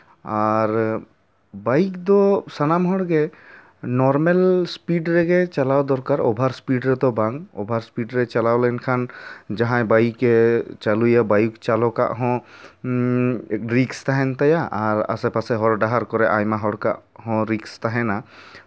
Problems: none marked